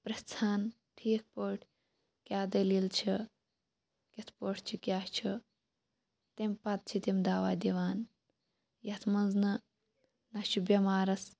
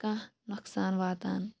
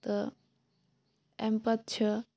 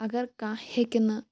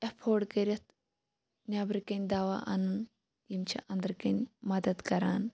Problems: none marked